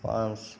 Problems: constant background noise